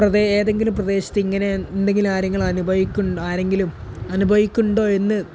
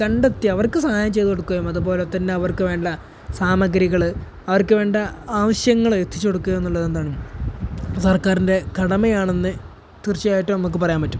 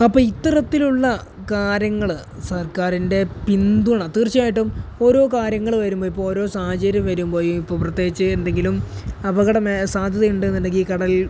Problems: none marked